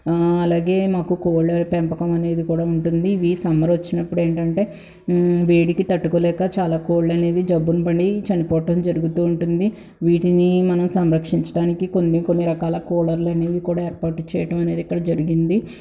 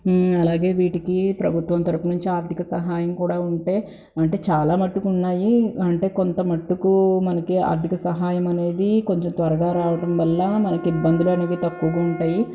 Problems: background sounds at intervals